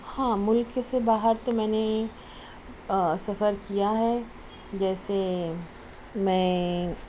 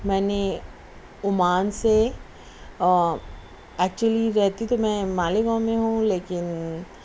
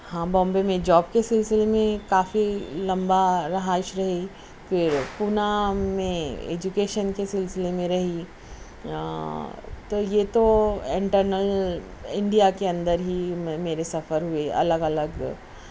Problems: constant background noise